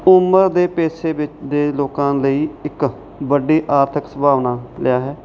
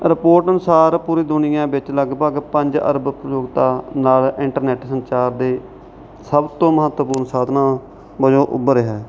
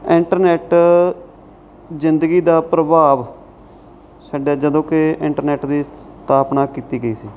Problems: none marked